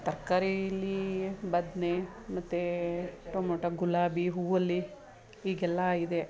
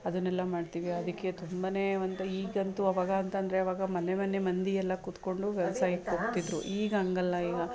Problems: none marked